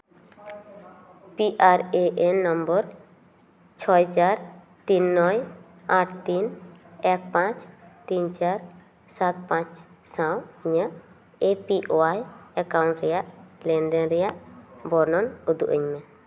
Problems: background sounds at intervals, echo